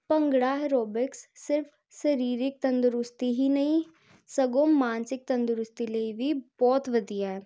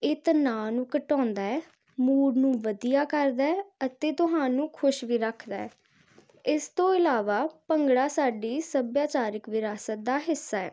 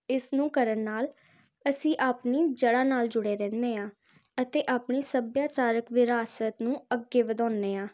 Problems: constant background noise